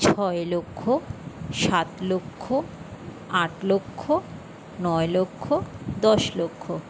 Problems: constant background noise